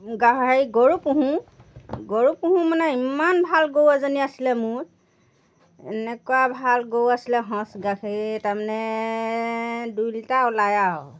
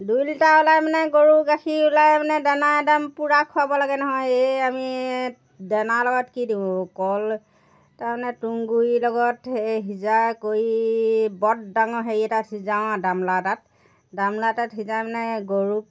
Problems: background sounds at intervals